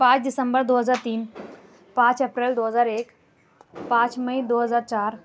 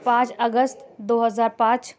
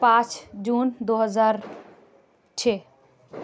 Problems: none marked